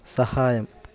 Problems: none marked